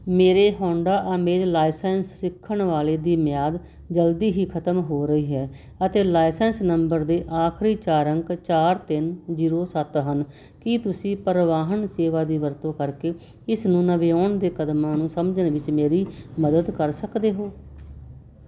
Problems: constant background noise